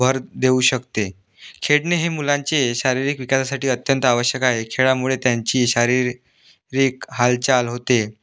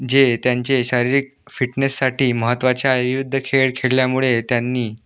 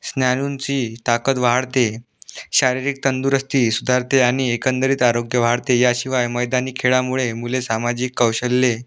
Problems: background sounds at intervals